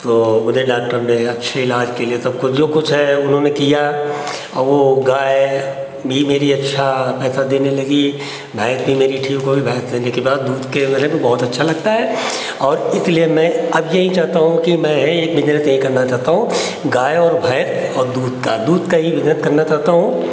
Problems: constant background noise